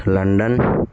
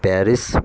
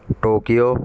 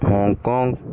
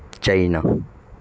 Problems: constant background noise